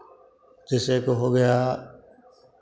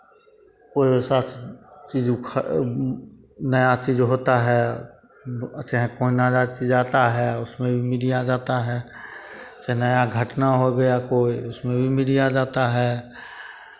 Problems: constant background noise, continuous background conversations